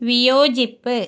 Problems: none marked